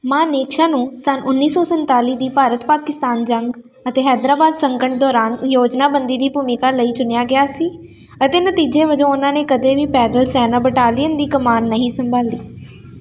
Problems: constant background noise